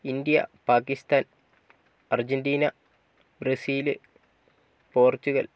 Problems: low volume